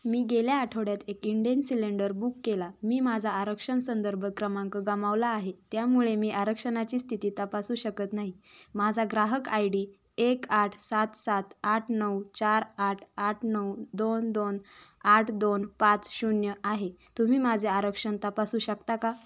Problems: none marked